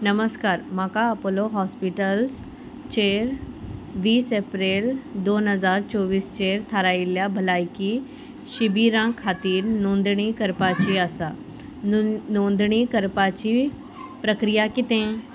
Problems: constant background noise